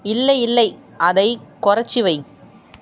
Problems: constant background noise